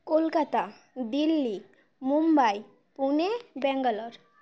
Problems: background sounds at intervals